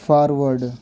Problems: background sounds at intervals, low volume